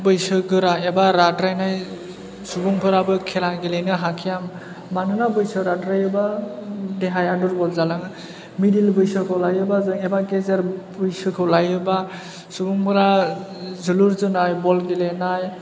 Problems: none marked